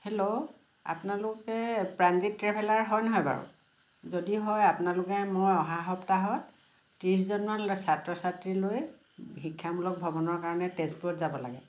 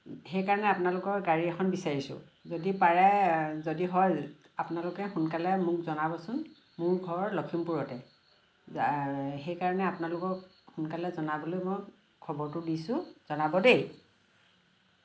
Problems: constant background noise